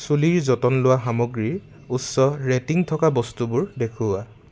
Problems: background sounds at intervals